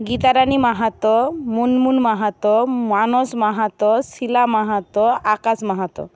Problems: none marked